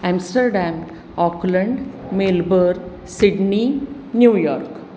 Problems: none marked